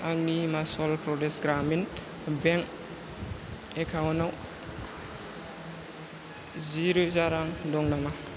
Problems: none marked